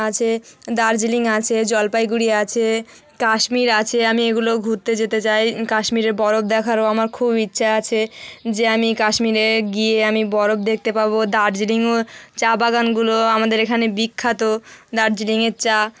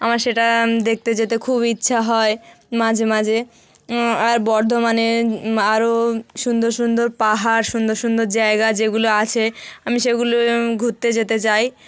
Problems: none marked